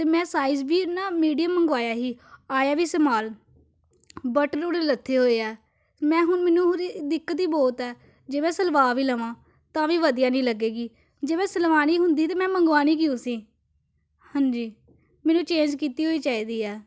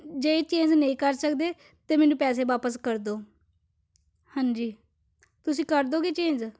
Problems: none marked